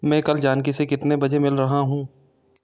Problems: constant background noise